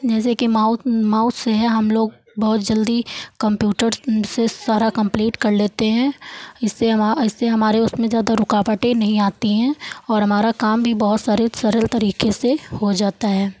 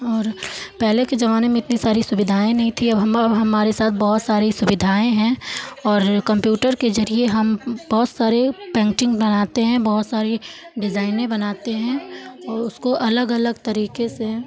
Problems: background sounds at intervals